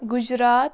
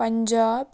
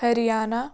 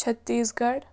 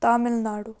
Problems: background sounds at intervals, background conversations at intervals